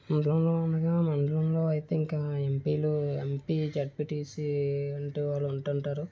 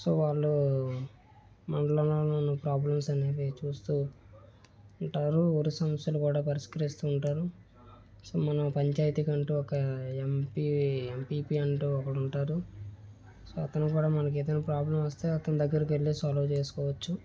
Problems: low volume